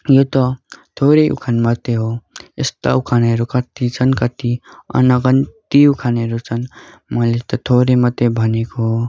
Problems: background sounds at intervals